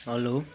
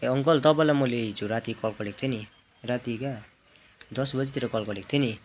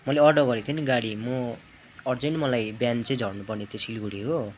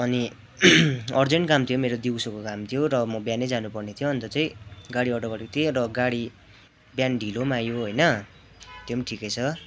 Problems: none marked